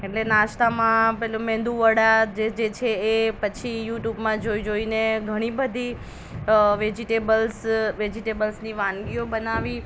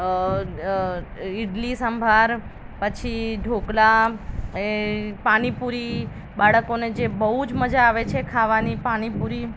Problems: constant background noise